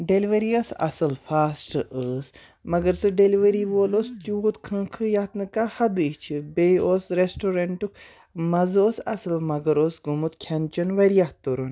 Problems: none marked